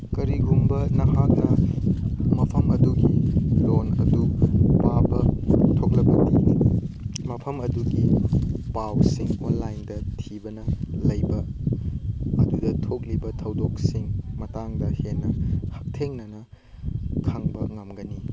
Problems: background sounds at intervals, background conversations at intervals